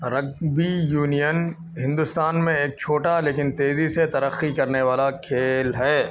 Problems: constant background noise, continuous background conversations